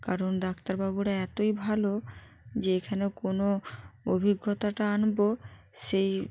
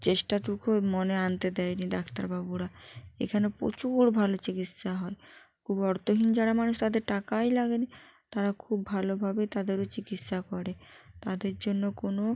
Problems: constant background noise